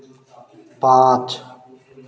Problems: constant background noise, background conversations at intervals